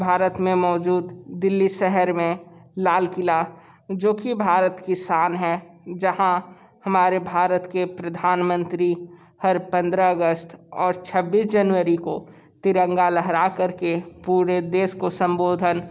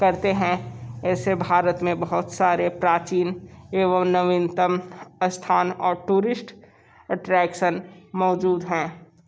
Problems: background sounds at intervals, background conversations at intervals